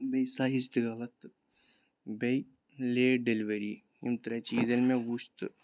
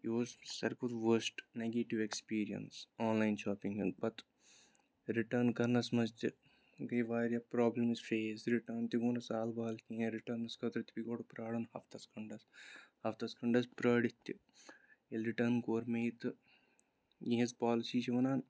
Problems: none marked